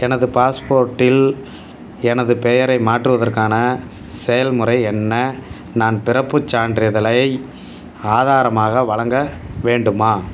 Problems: background sounds at intervals